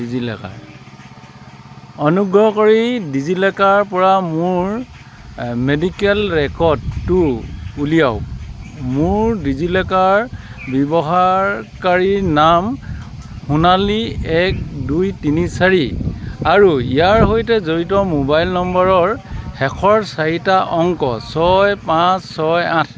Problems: none marked